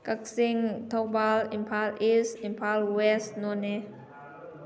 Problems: constant background noise